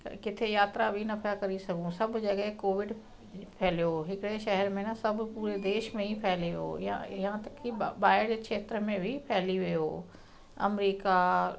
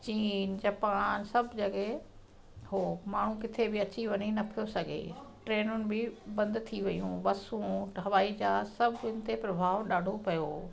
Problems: constant background noise, echo